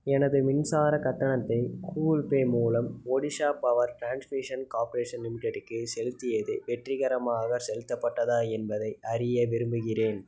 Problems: none marked